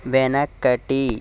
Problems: constant background noise